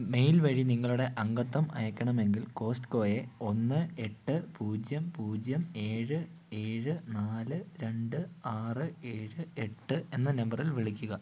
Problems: low volume